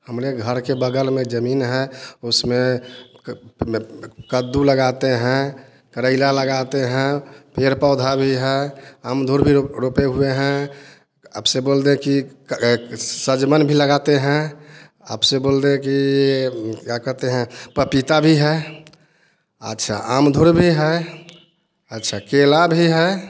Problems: constant background noise